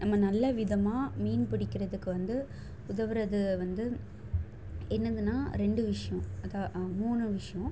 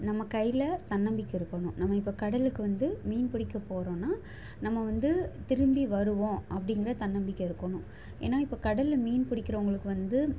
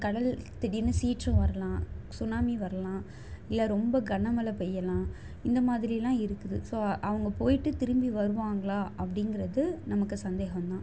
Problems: none marked